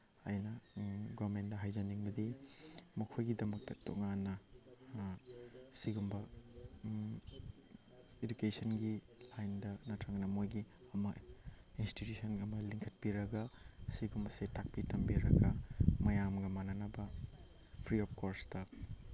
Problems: background sounds at intervals